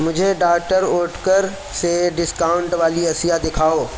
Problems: constant background noise